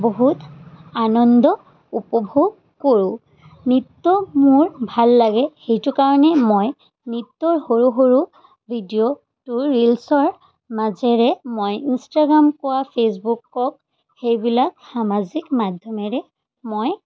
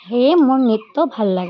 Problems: constant background noise